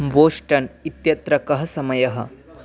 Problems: constant background noise